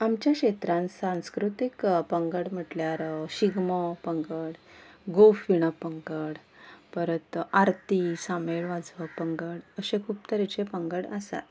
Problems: background sounds at intervals